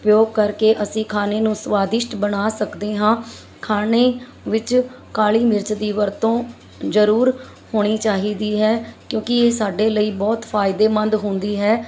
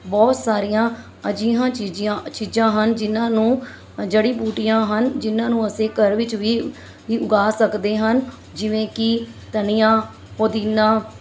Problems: constant background noise